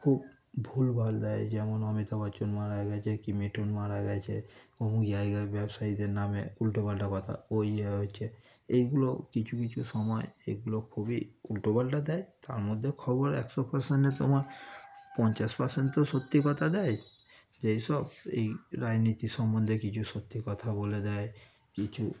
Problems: background sounds at intervals, background conversations at intervals